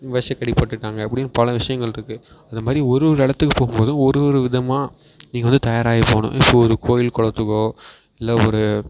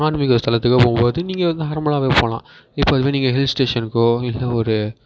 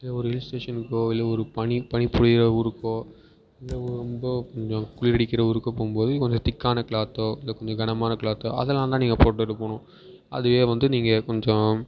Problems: background sounds at intervals